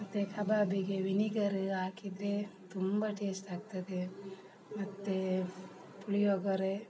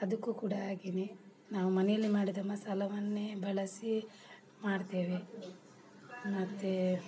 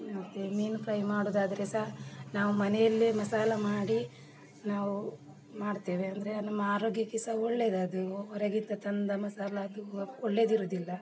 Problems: background sounds at intervals, background conversations at intervals